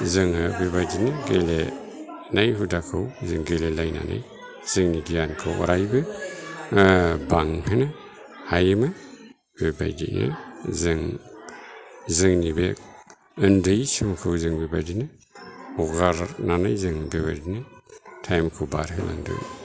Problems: low volume